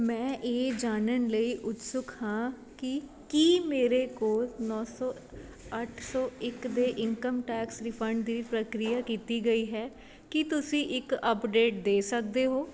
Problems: none marked